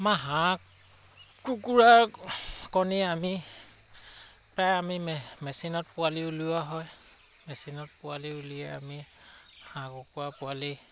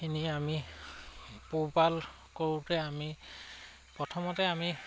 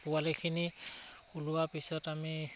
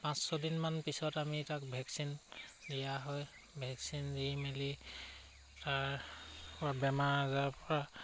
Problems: constant background noise